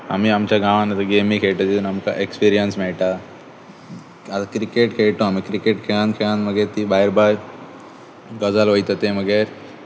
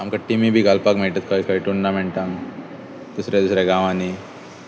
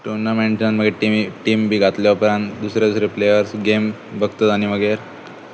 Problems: constant background noise